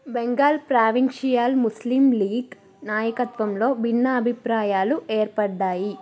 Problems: background conversations at intervals